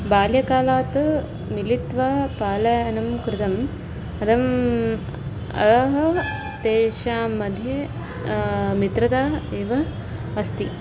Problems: constant background noise